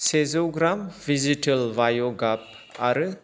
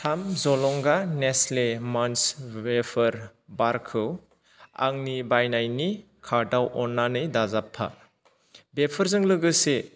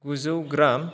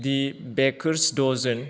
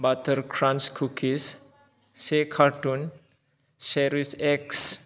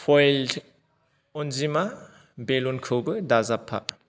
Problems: none marked